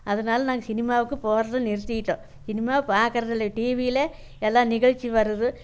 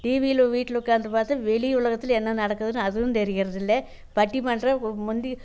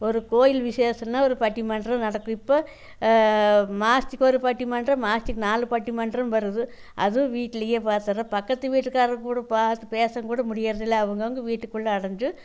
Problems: none marked